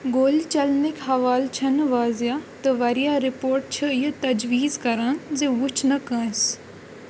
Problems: constant background noise